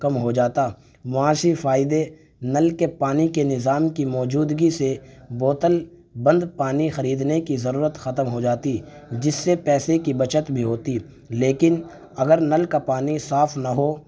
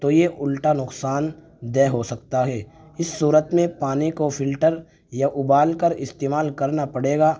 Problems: constant background noise